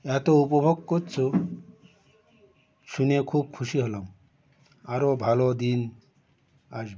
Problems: none marked